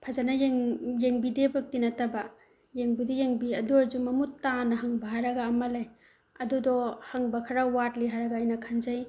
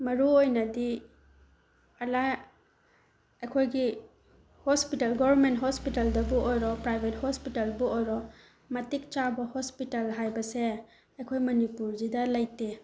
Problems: background sounds at intervals